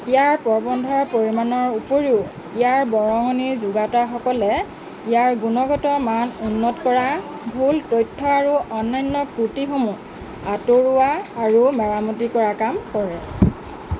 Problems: constant background noise, background conversations at intervals